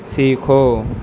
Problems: constant background noise